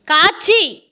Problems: constant background noise